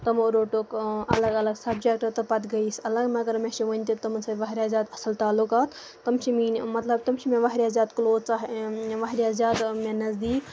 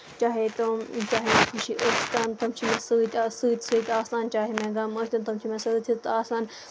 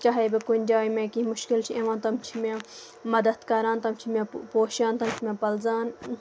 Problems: none marked